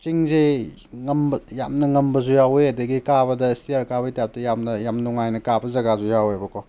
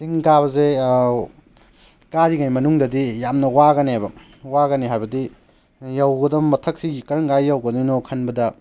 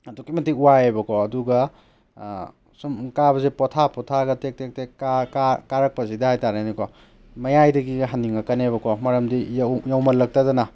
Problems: none marked